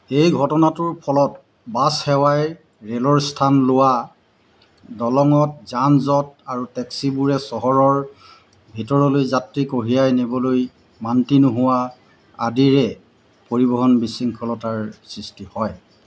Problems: none marked